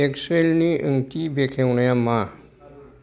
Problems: background conversations at intervals